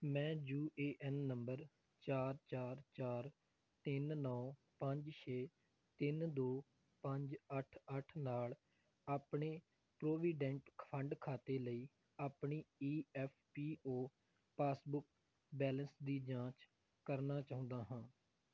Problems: none marked